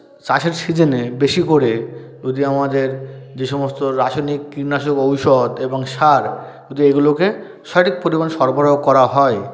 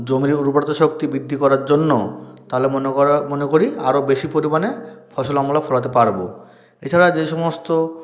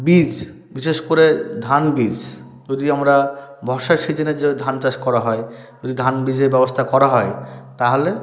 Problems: none marked